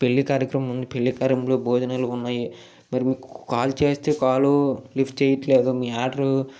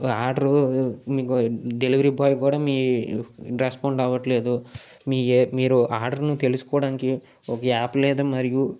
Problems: none marked